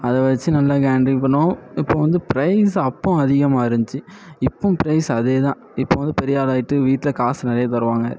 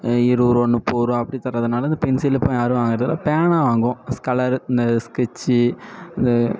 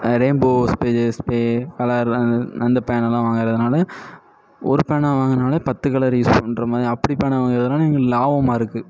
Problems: background sounds at intervals